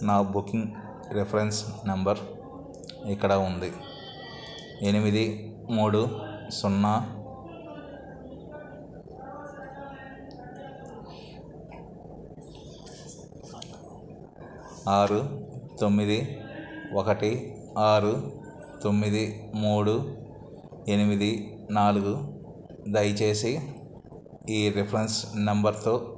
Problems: continuous background conversations